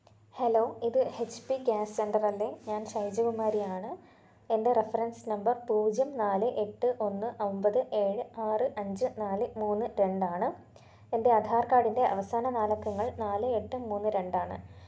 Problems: low volume